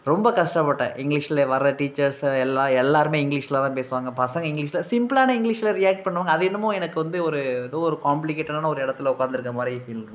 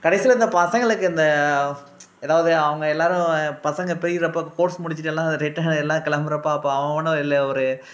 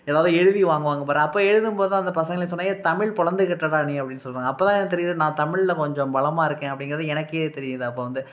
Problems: none marked